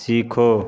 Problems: background sounds at intervals, background conversations at intervals